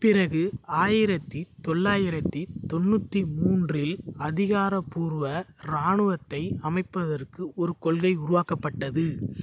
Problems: constant background noise